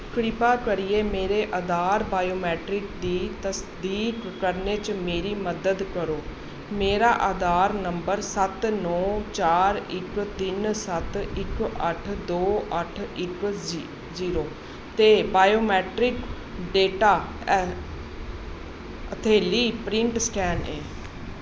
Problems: constant background noise